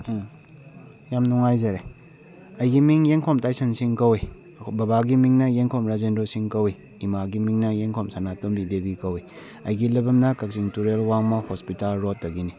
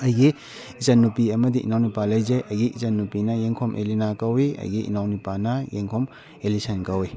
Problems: background conversations at intervals